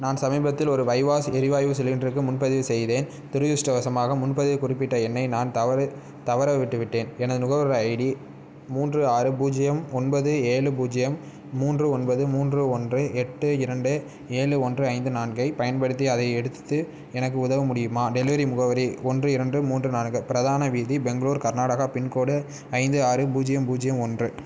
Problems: none marked